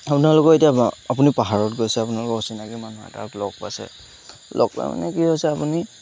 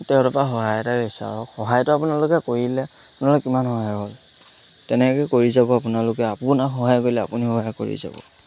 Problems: constant background noise